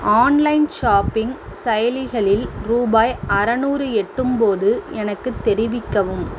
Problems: constant background noise